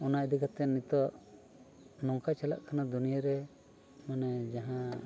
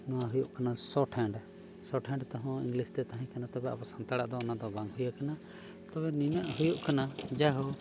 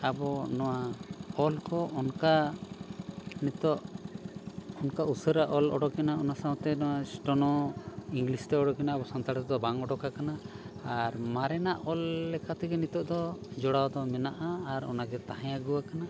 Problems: constant background noise